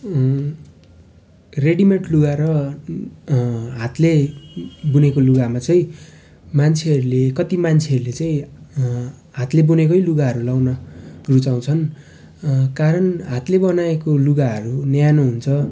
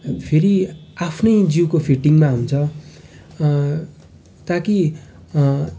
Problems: constant background noise